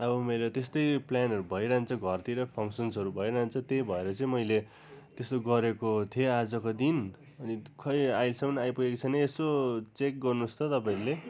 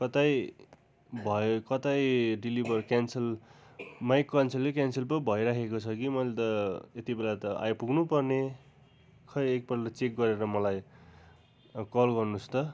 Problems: none marked